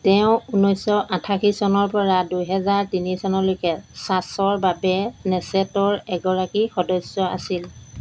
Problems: none marked